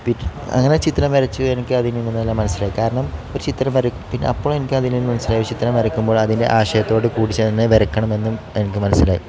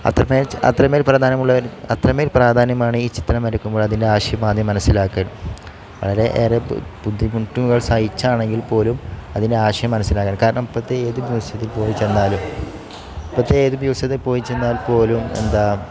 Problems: none marked